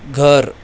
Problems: constant background noise